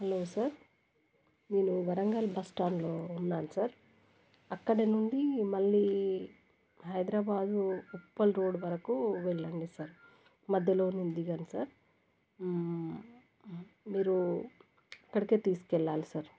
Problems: none marked